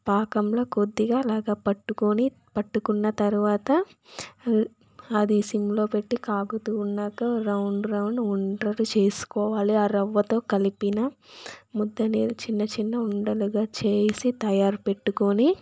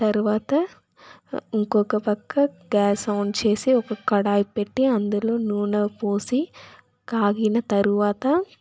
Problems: background sounds at intervals